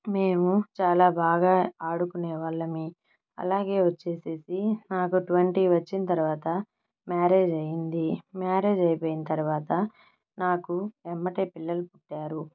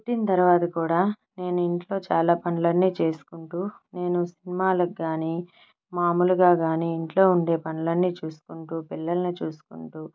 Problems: background sounds at intervals